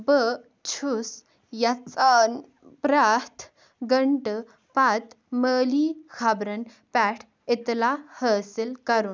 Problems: background sounds at intervals